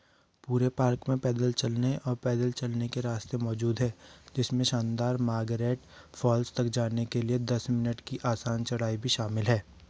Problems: background sounds at intervals